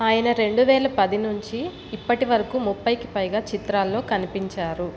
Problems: constant background noise